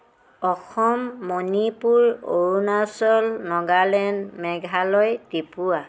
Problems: constant background noise